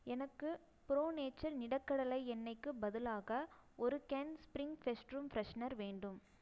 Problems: low volume